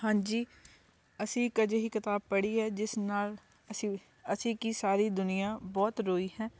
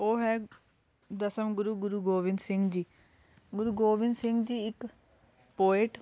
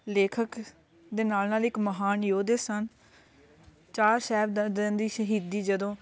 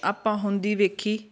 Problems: constant background noise, continuous background conversations